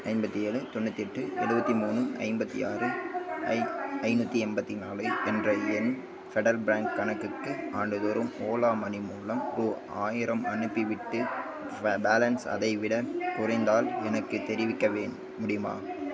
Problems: continuous background conversations